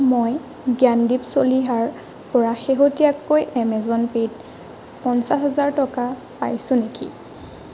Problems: constant background noise